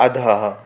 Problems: none marked